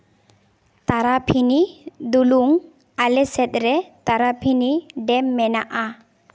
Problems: none marked